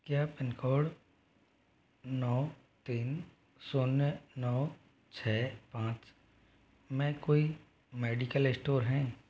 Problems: none marked